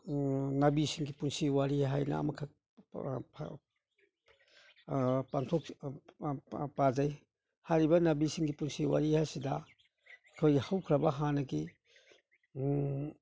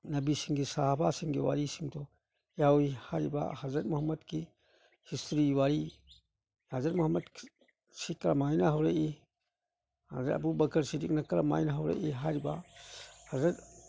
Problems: none marked